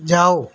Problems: constant background noise